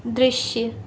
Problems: constant background noise, background conversations at intervals